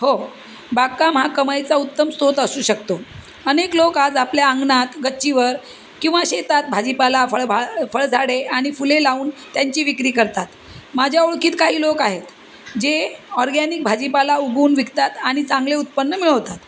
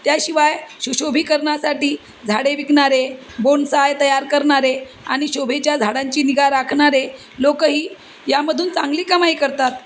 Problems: constant background noise